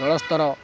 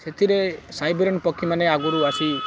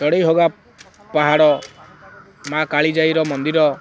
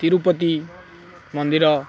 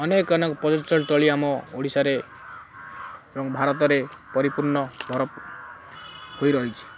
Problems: background sounds at intervals